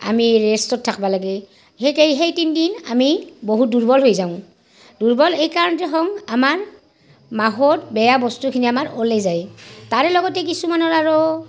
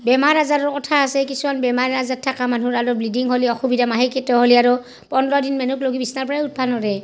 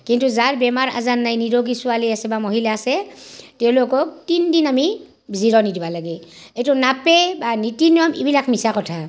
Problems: background sounds at intervals, background conversations at intervals